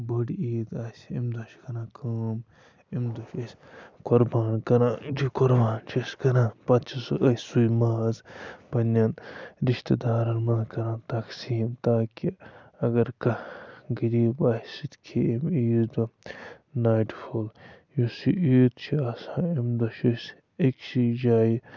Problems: constant background noise, low volume